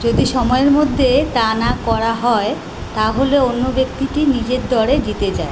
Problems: constant background noise